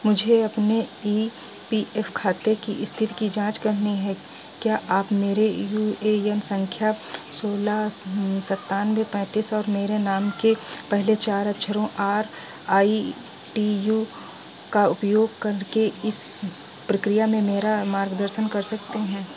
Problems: none marked